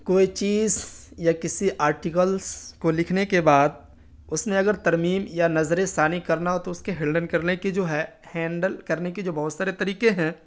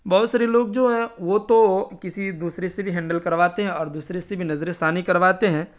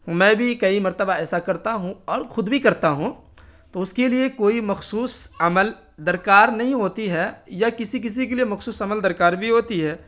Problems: constant background noise